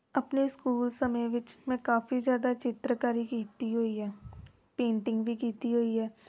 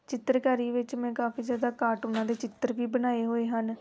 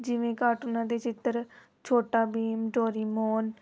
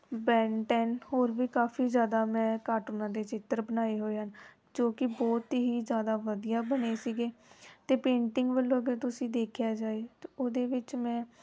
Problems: background sounds at intervals